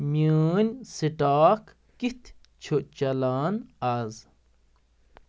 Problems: background sounds at intervals